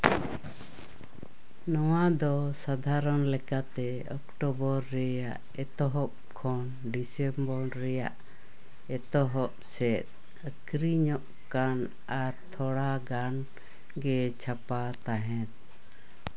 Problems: background sounds at intervals